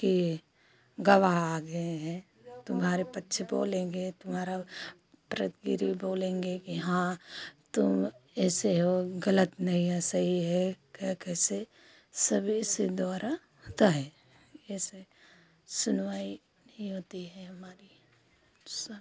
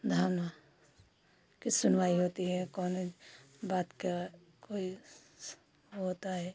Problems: continuous background conversations